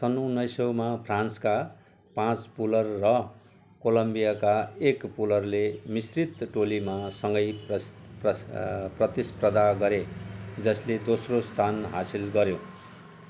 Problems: none marked